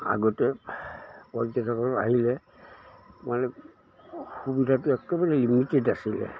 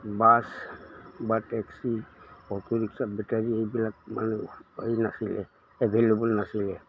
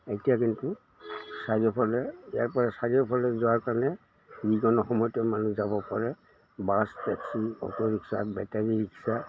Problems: constant background noise